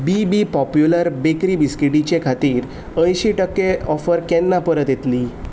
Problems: background sounds at intervals